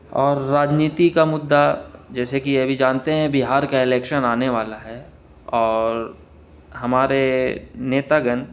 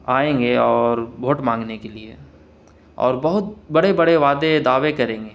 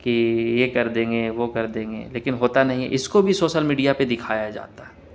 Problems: none marked